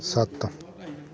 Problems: background conversations at intervals